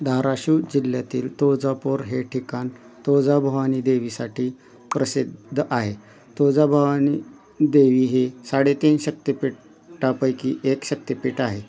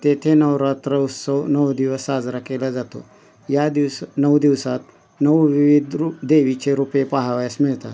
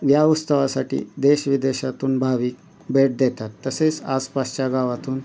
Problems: none marked